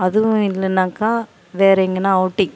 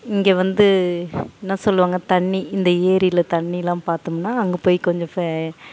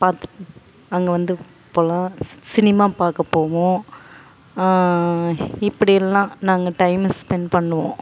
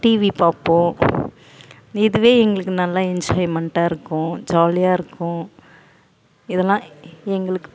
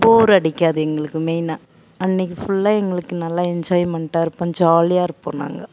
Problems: background sounds at intervals